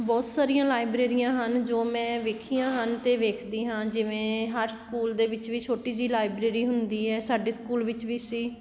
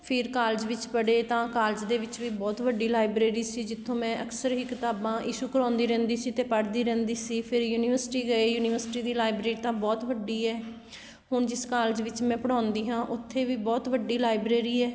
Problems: none marked